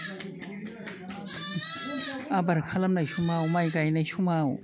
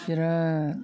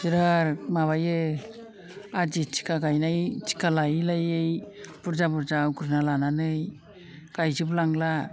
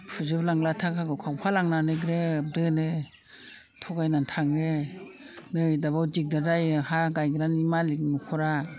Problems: low volume